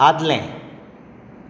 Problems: background sounds at intervals